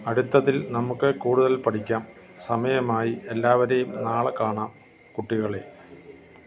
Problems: constant background noise